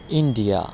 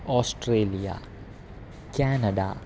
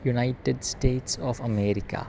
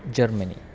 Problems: constant background noise